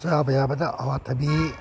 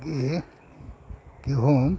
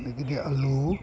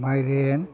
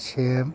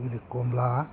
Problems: background sounds at intervals